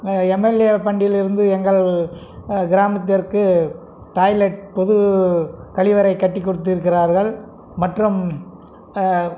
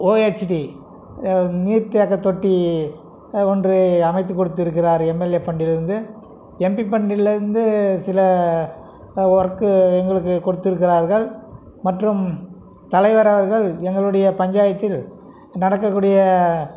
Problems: none marked